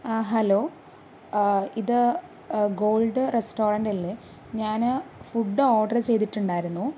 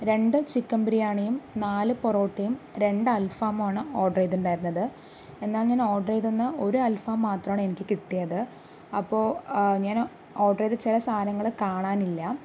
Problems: none marked